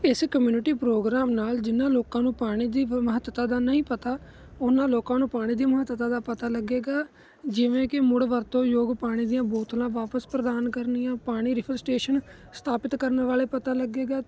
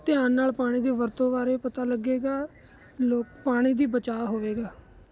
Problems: constant background noise